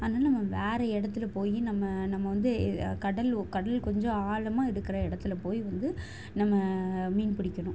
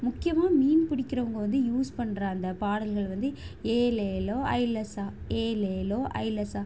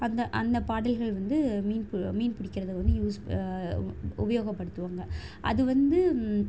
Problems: none marked